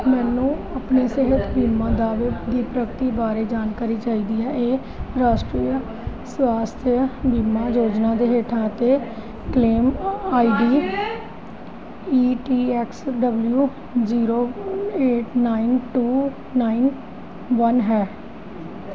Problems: background conversations at intervals